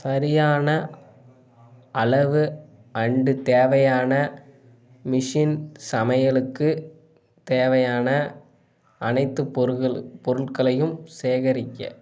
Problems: background sounds at intervals